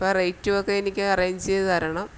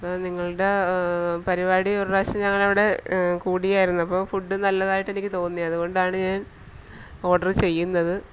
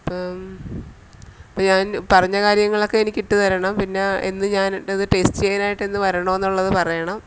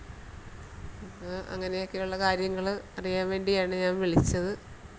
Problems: none marked